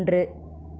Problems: none marked